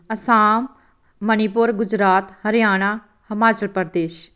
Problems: none marked